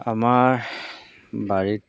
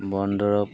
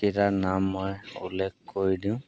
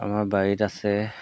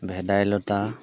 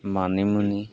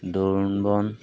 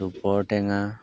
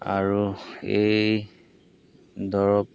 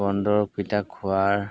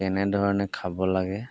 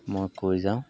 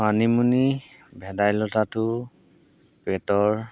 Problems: background sounds at intervals